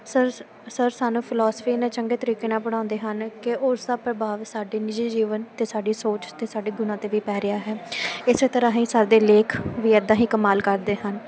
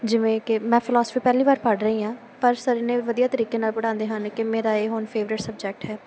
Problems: none marked